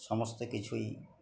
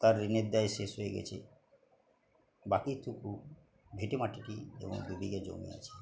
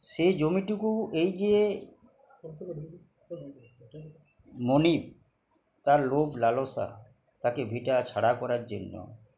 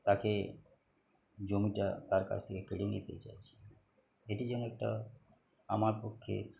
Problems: background sounds at intervals, background conversations at intervals